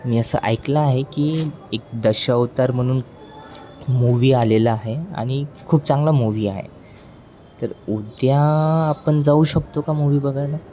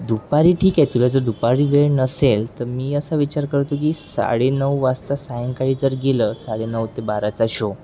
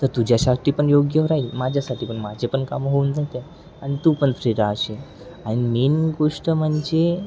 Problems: constant background noise, background conversations at intervals